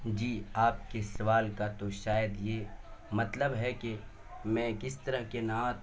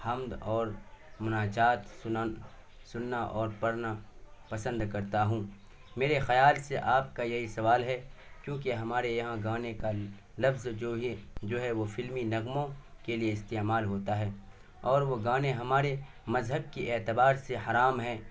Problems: constant background noise